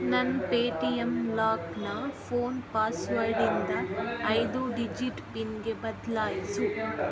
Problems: background sounds at intervals